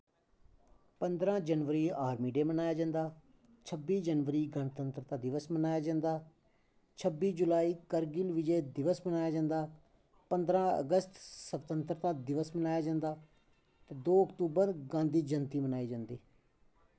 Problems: low volume